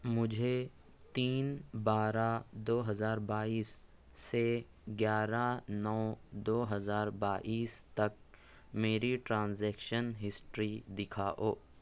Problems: none marked